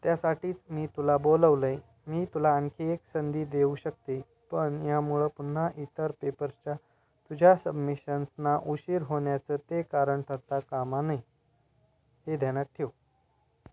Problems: constant background noise, continuous background conversations